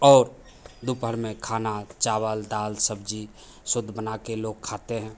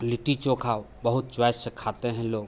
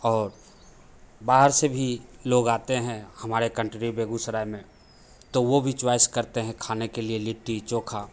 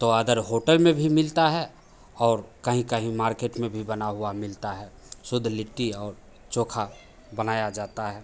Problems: none marked